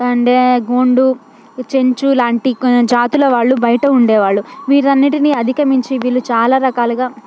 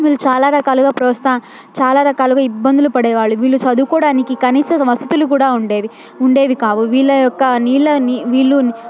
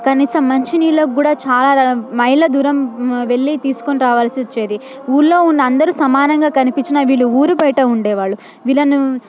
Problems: background sounds at intervals